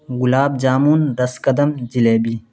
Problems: constant background noise